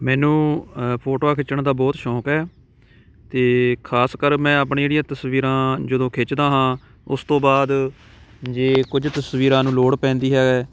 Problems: constant background noise